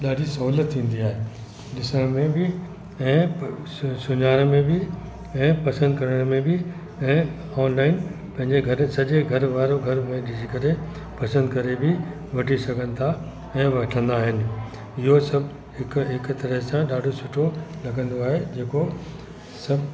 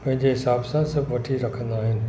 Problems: constant background noise, echo